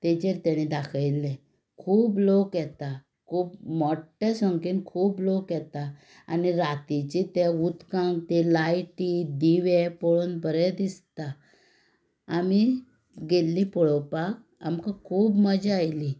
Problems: background sounds at intervals